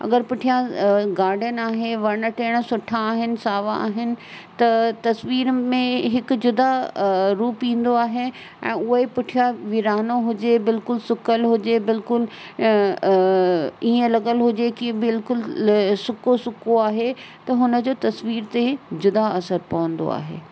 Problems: constant background noise